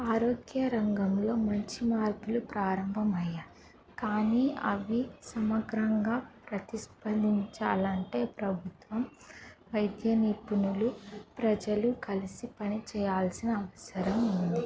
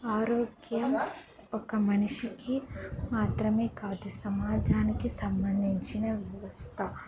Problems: background sounds at intervals, background conversations at intervals